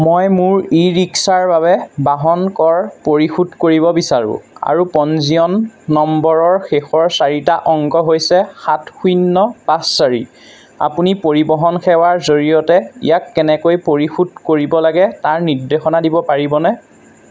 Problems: constant background noise